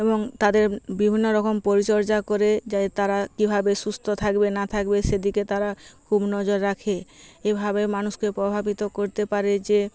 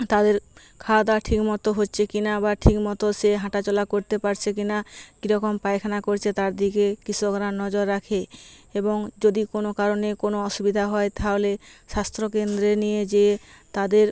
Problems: constant background noise